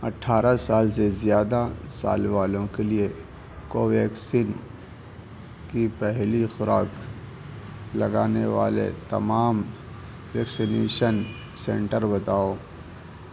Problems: none marked